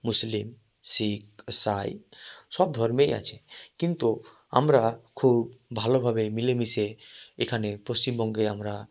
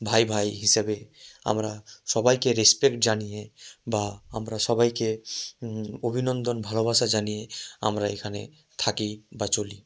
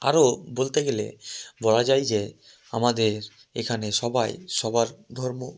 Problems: none marked